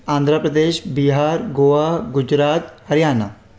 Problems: constant background noise, echo